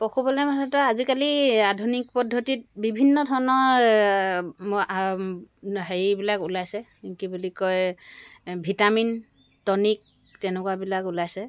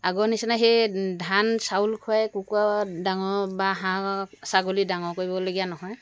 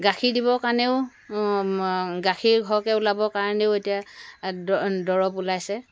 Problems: background sounds at intervals